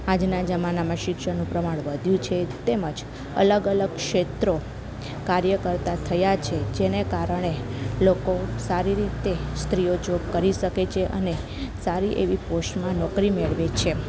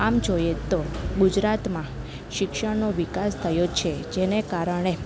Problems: low volume